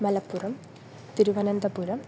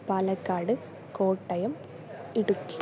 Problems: constant background noise